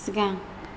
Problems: constant background noise